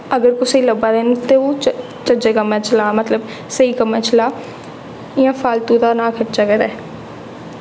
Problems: echo